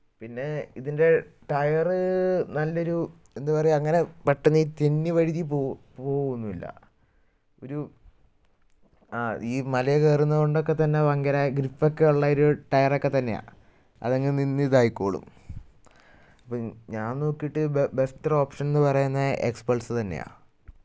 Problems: none marked